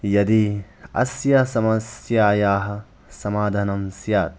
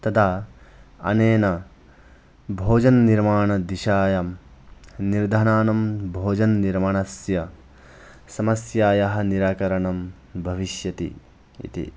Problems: background sounds at intervals